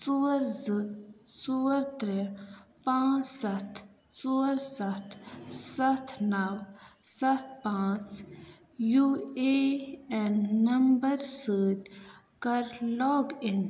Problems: none marked